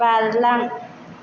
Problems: none marked